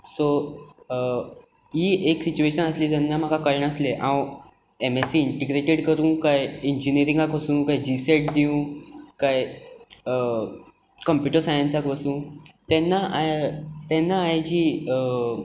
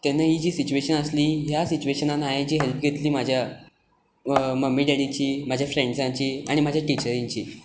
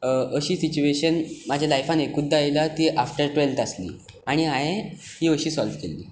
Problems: background sounds at intervals